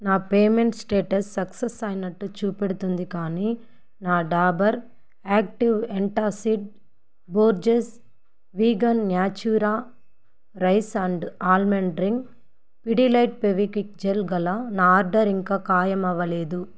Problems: none marked